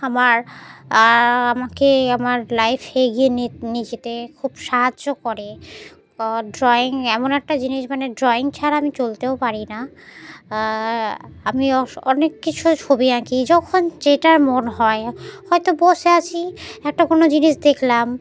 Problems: none marked